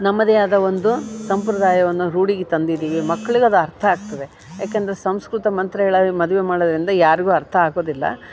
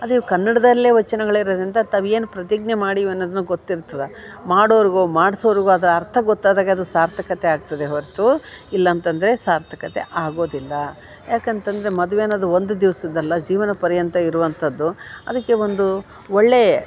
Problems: none marked